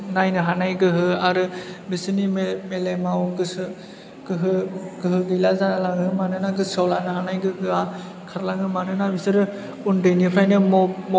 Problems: none marked